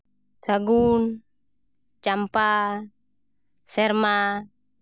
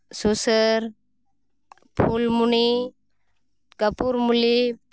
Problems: none marked